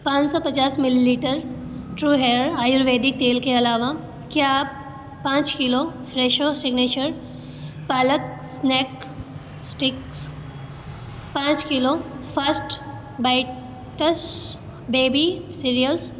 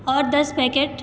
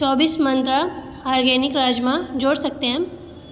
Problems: background sounds at intervals